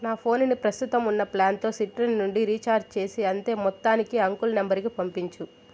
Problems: none marked